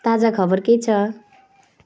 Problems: background sounds at intervals